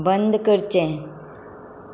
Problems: none marked